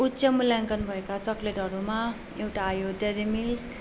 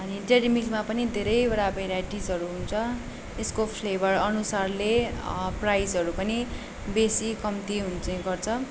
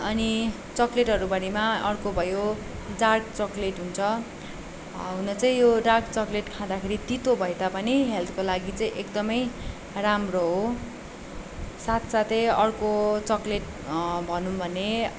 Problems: constant background noise